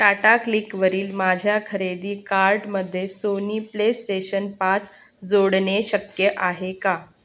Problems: none marked